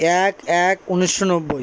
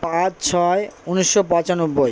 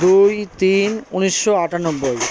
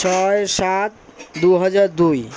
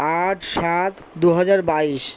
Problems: background sounds at intervals